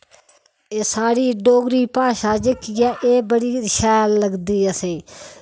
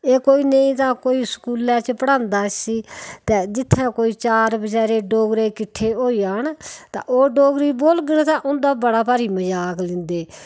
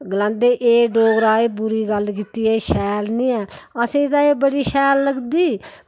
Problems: background sounds at intervals